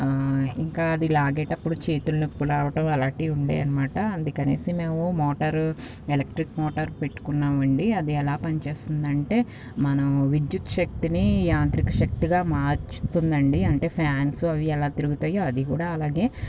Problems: none marked